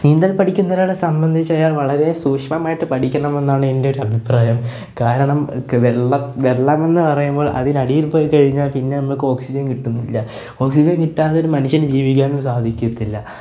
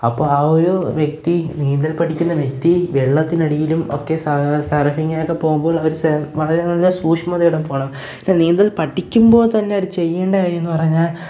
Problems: background sounds at intervals